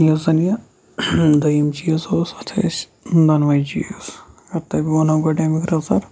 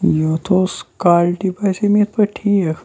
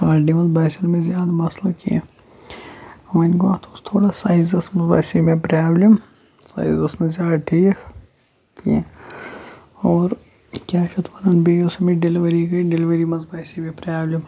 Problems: low volume